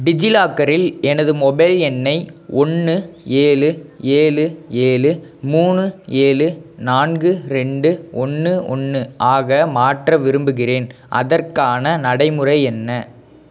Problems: none marked